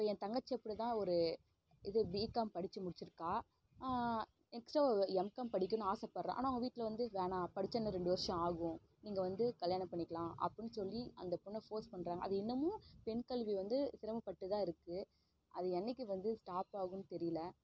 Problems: low volume